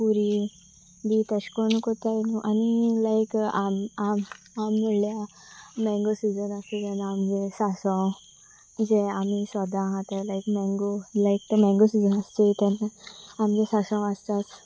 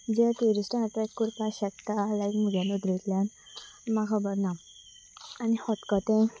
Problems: background sounds at intervals